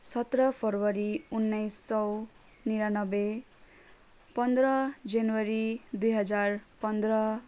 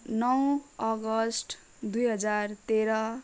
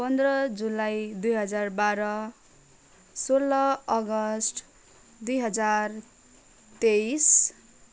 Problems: none marked